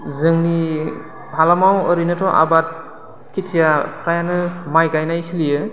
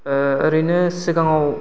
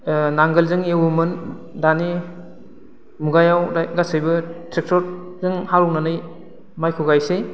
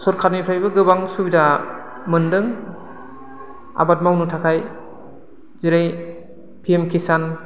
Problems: constant background noise